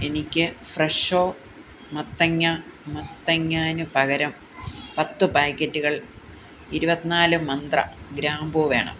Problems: constant background noise